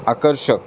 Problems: none marked